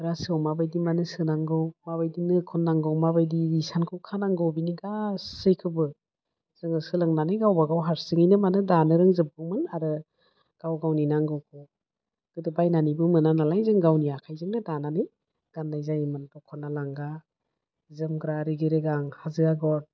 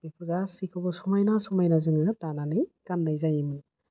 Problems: low volume